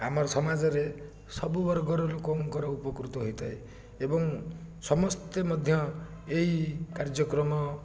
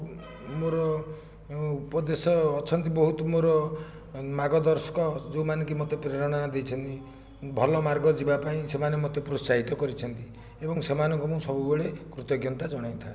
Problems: background sounds at intervals, low volume